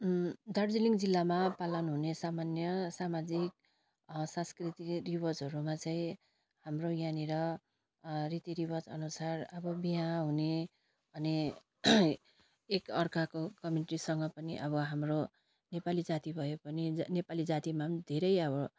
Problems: constant background noise